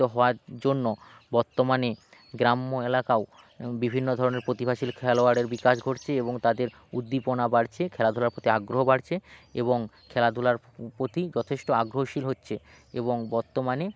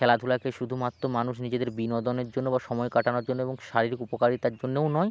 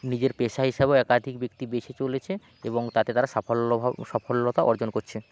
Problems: background sounds at intervals